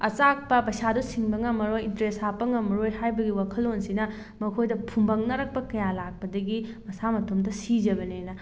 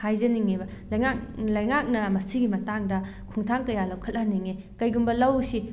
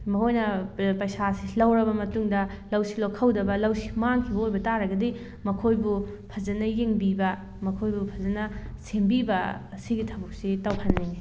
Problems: none marked